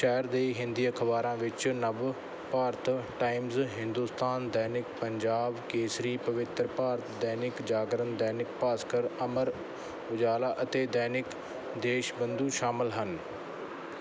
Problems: none marked